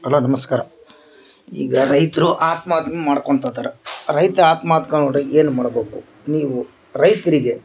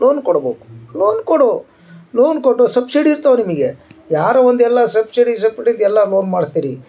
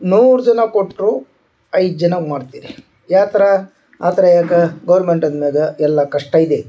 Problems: background sounds at intervals